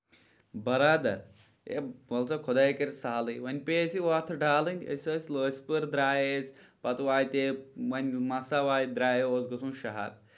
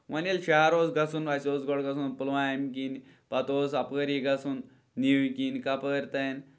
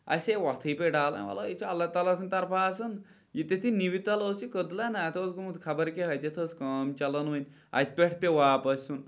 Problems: none marked